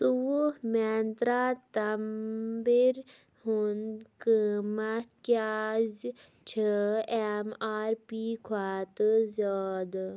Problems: none marked